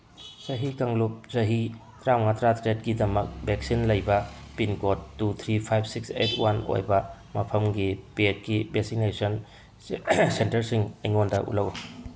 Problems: none marked